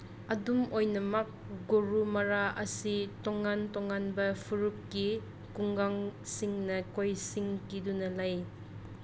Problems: constant background noise